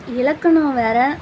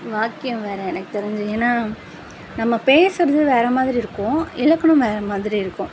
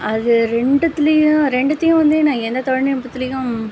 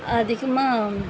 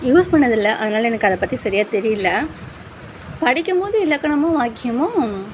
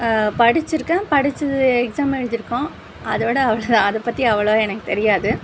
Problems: constant background noise